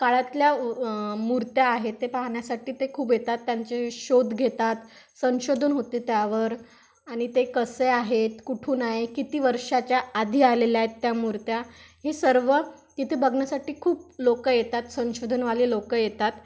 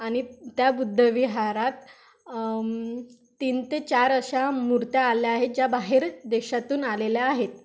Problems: background sounds at intervals